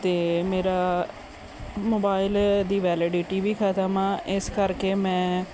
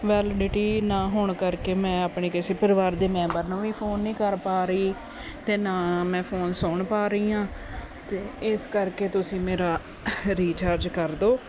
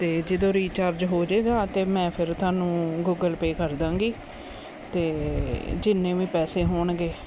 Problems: constant background noise